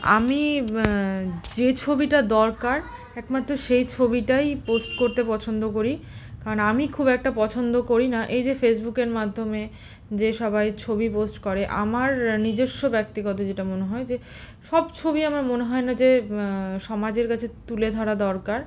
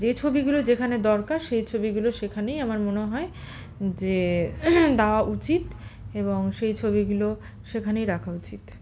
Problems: constant background noise, continuous background conversations